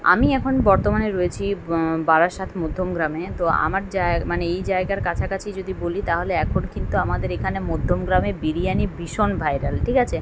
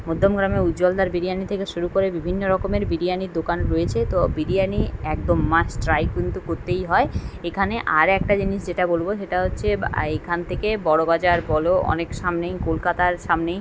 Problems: none marked